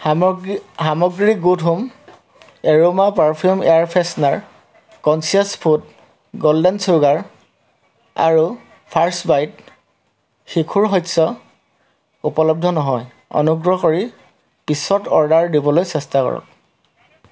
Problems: constant background noise